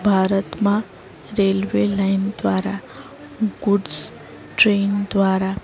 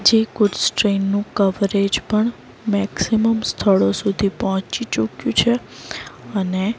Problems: none marked